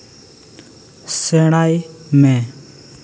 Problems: constant background noise, echo